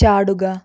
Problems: none marked